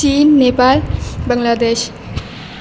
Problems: background sounds at intervals